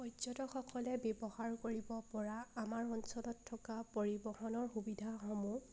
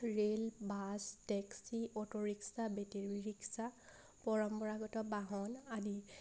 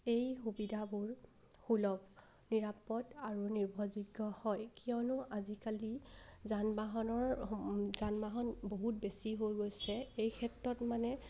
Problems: none marked